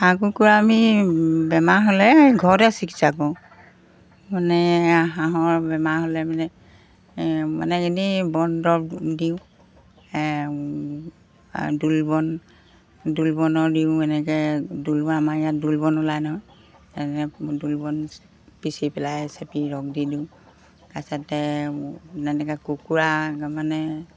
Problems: background sounds at intervals